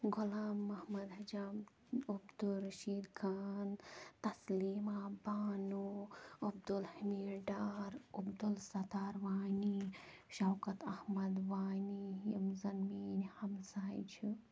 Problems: low volume